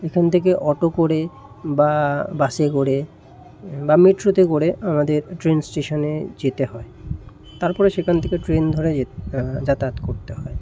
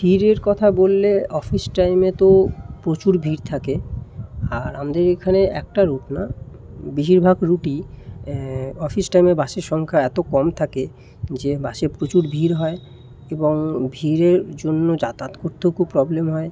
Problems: constant background noise